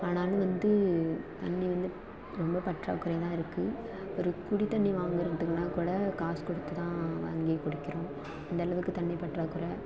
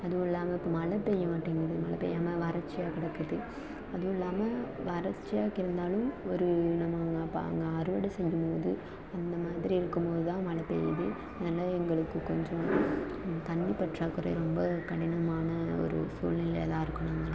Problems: constant background noise, low volume